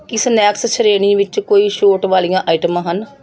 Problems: background sounds at intervals